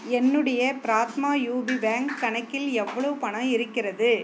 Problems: none marked